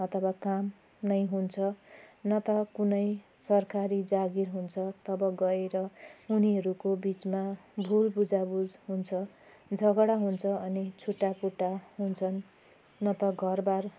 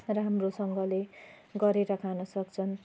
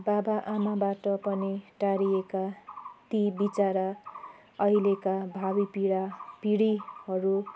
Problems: constant background noise